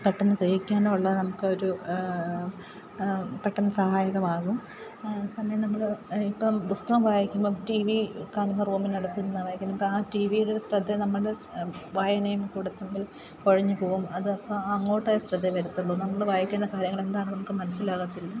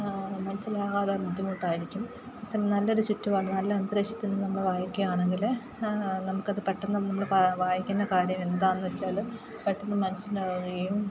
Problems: background sounds at intervals, low volume